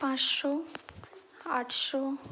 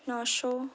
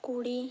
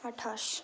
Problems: background sounds at intervals, background conversations at intervals